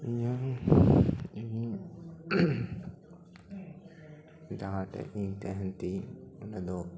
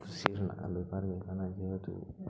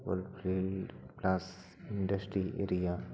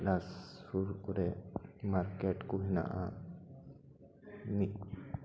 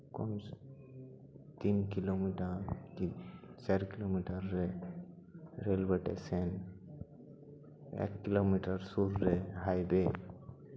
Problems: continuous background conversations